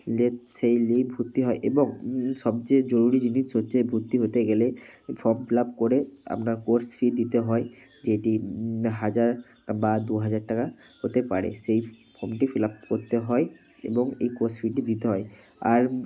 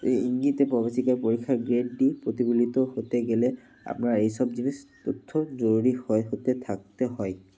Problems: none marked